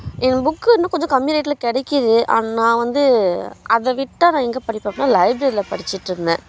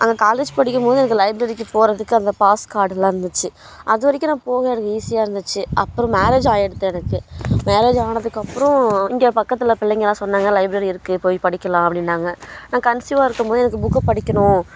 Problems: constant background noise